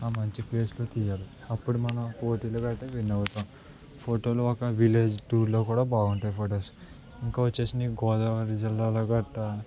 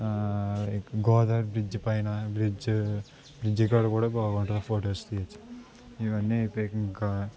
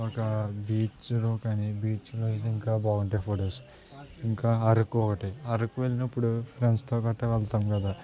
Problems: constant background noise, background conversations at intervals